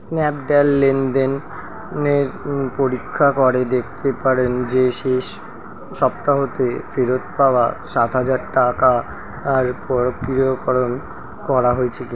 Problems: constant background noise